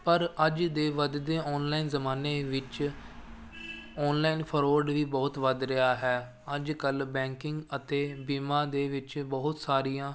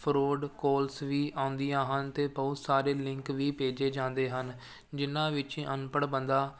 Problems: none marked